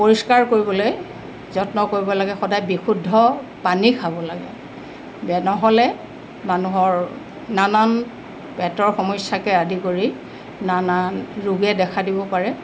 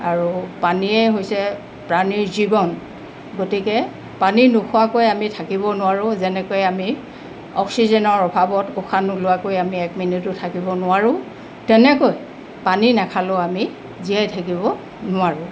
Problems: constant background noise